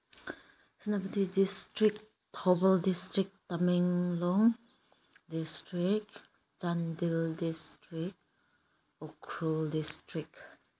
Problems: none marked